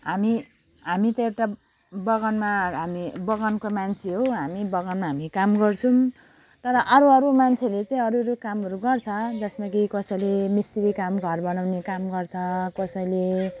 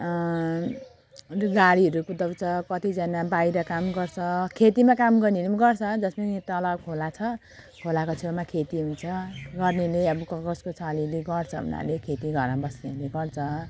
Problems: constant background noise